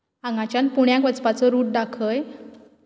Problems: background sounds at intervals